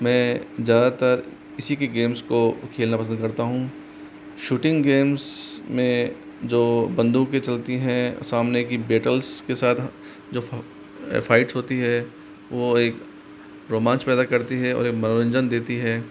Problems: constant background noise